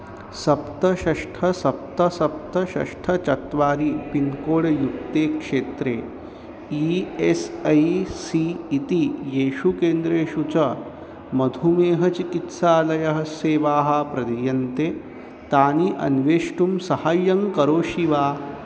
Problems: constant background noise